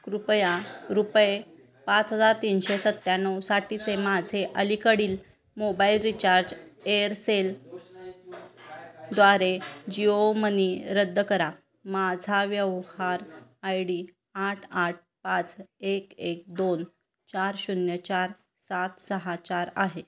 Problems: constant background noise, background conversations at intervals